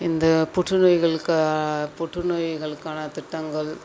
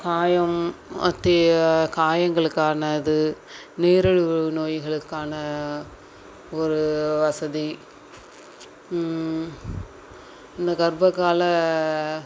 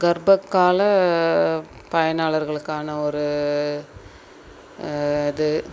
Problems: background sounds at intervals